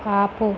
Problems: constant background noise